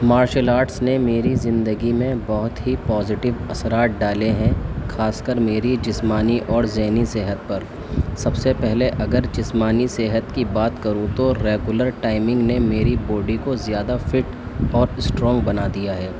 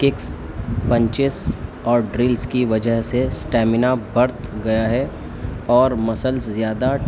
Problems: constant background noise